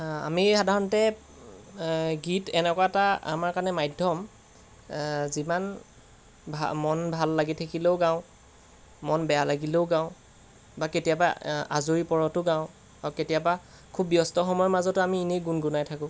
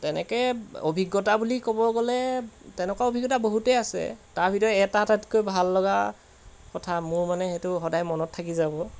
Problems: background sounds at intervals